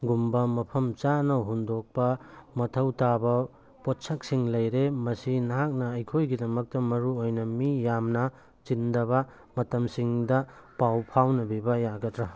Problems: none marked